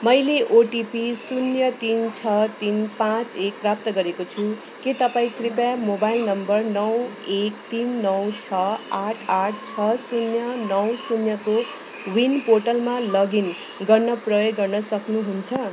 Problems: constant background noise